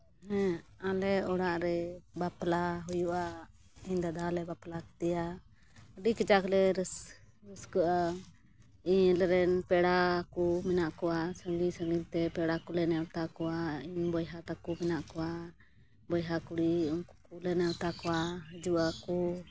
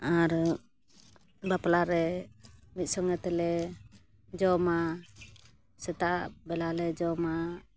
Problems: background sounds at intervals